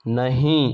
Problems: none marked